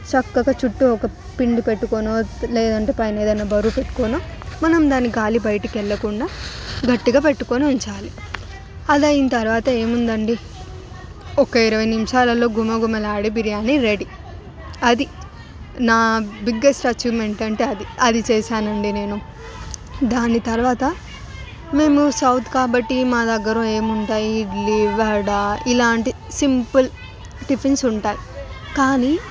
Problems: background sounds at intervals, continuous background conversations